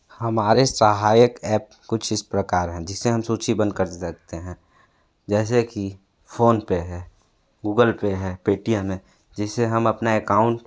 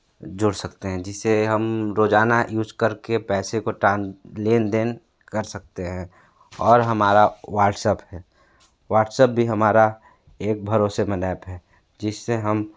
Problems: background sounds at intervals